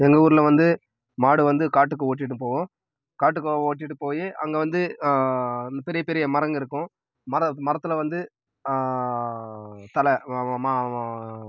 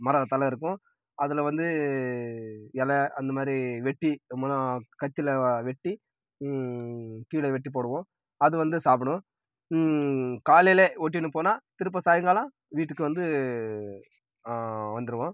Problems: background sounds at intervals